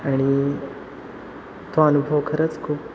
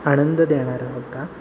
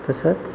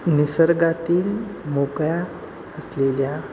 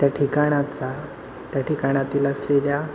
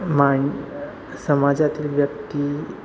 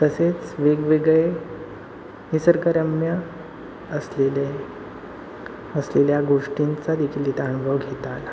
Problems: constant background noise